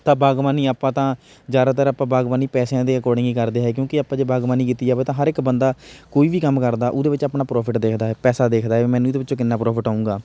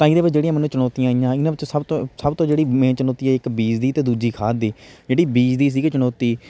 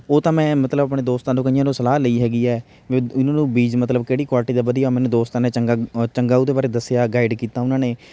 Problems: none marked